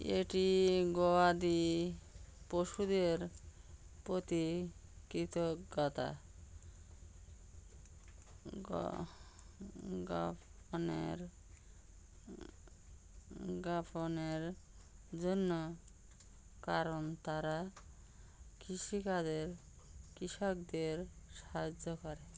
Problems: constant background noise